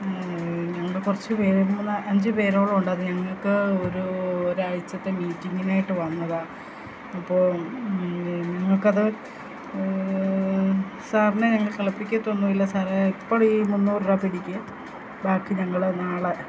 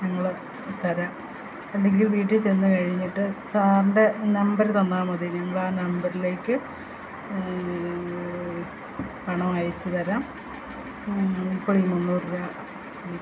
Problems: constant background noise, low volume